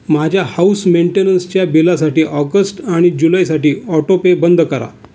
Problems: constant background noise, background conversations at intervals